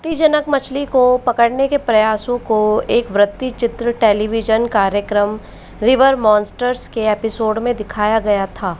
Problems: constant background noise